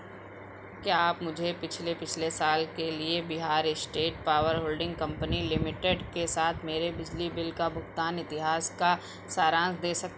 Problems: constant background noise